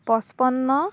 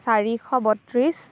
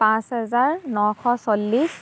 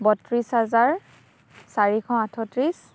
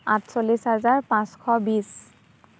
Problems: background sounds at intervals